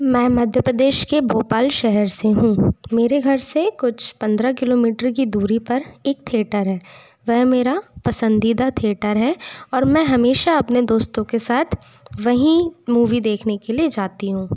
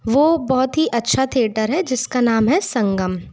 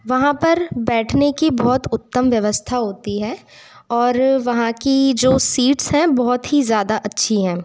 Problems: background sounds at intervals